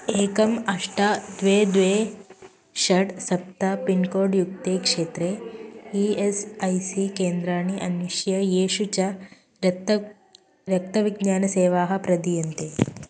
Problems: constant background noise